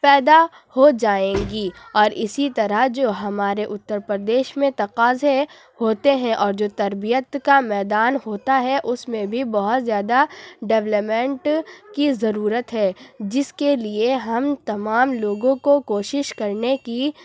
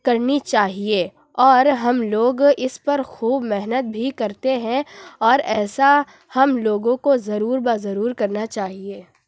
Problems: background sounds at intervals, background conversations at intervals